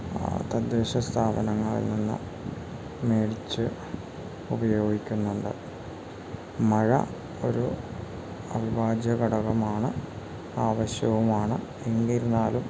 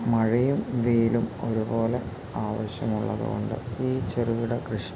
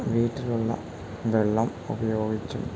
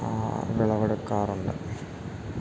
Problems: constant background noise